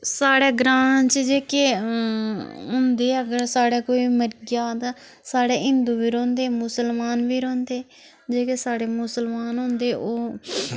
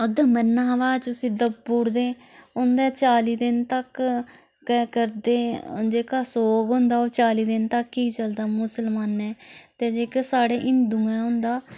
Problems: none marked